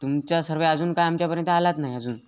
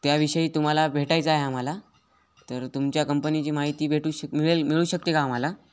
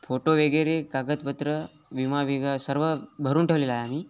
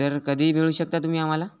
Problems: constant background noise, background conversations at intervals